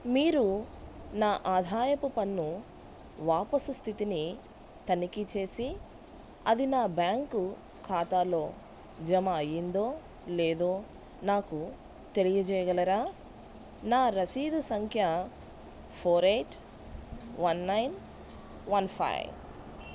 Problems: none marked